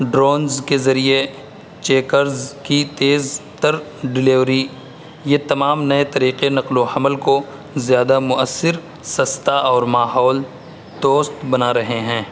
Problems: constant background noise